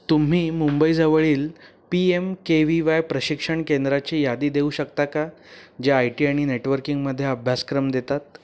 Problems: none marked